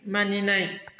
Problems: none marked